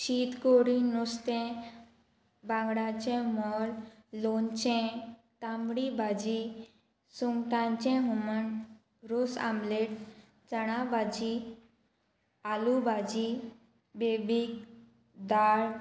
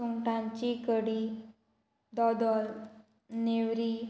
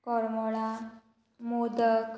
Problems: constant background noise